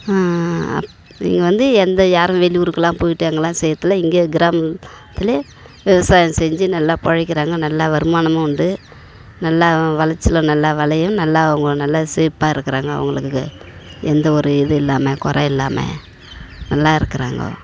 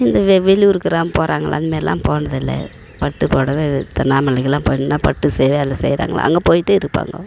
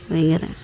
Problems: background sounds at intervals